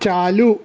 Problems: none marked